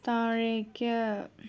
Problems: low volume